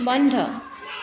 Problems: constant background noise